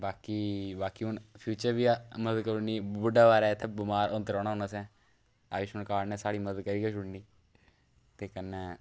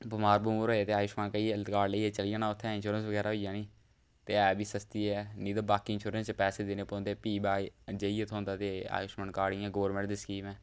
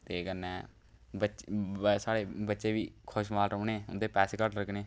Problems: none marked